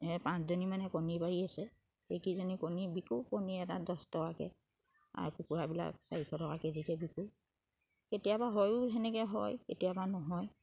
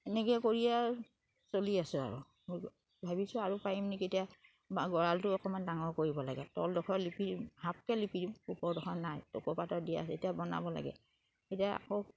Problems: background sounds at intervals